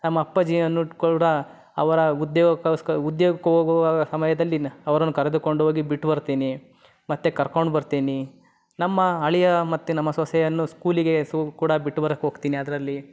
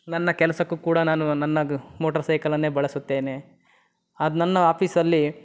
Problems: none marked